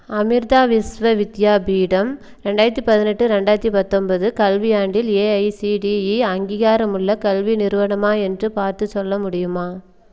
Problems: none marked